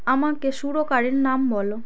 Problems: background conversations at intervals